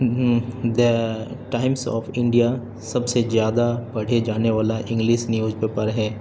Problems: constant background noise